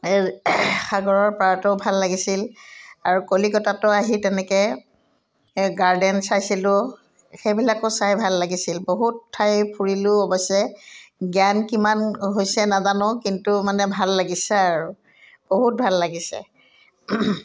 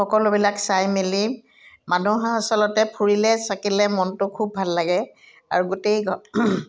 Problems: none marked